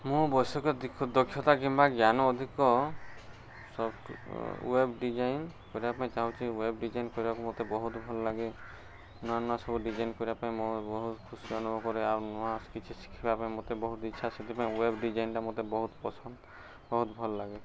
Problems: none marked